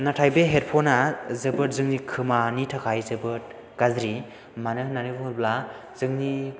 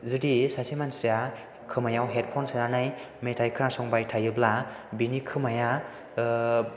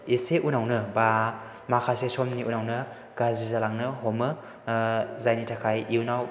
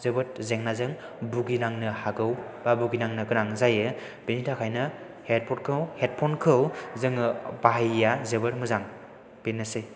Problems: background sounds at intervals